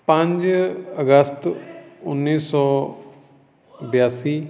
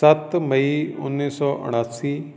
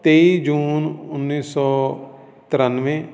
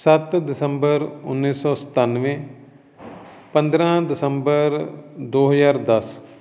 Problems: background sounds at intervals, continuous background conversations